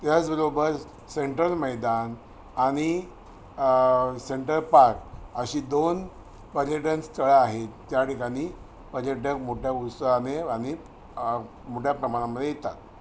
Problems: constant background noise